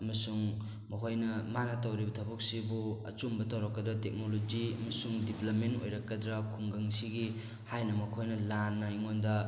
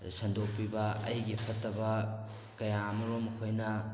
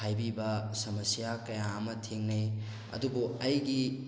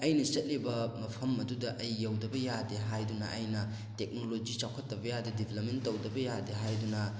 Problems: constant background noise